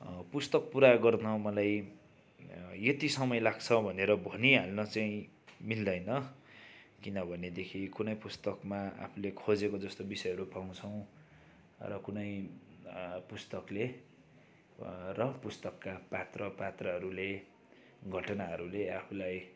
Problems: constant background noise